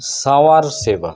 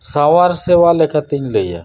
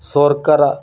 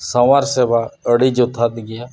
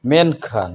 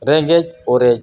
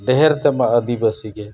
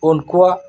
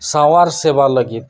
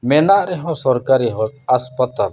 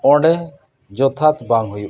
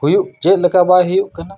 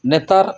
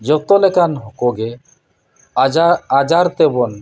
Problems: none marked